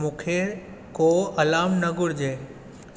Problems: constant background noise, echo